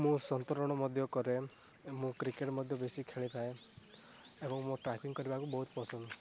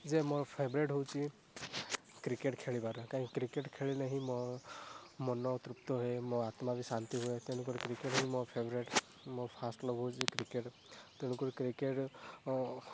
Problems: background sounds at intervals, low volume